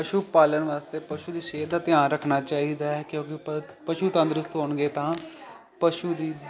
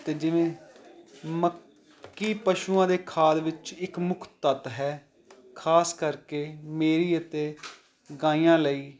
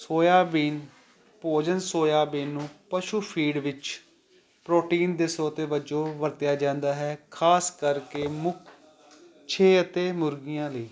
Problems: constant background noise, continuous background conversations